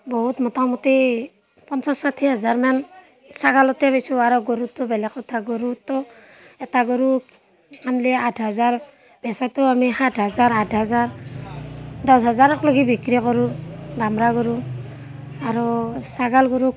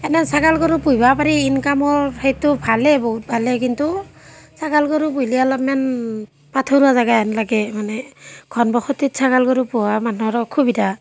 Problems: constant background noise